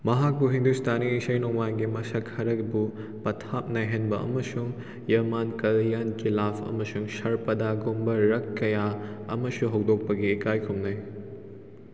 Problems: echo